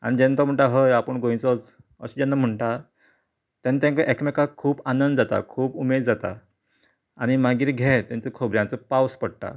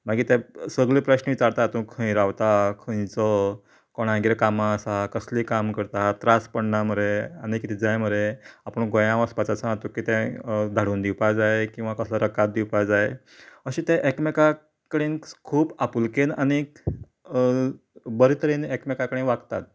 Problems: background sounds at intervals